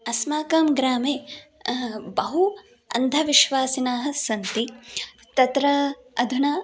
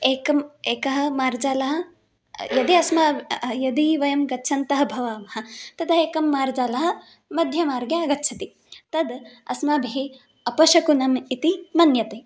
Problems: background sounds at intervals